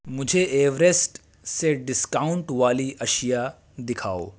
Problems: constant background noise